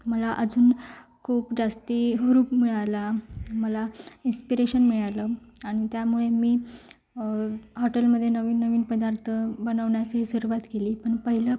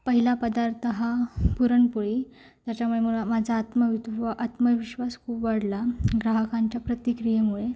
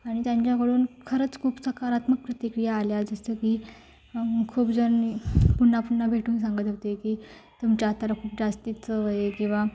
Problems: constant background noise, background conversations at intervals